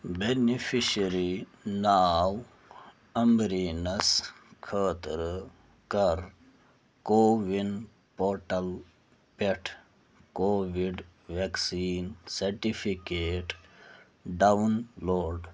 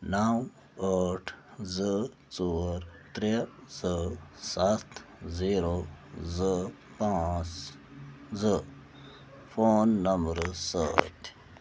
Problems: none marked